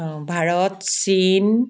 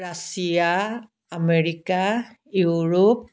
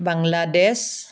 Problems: background sounds at intervals